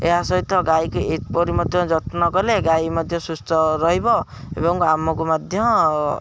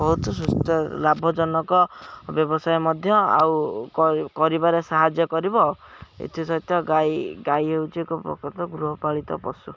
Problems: background sounds at intervals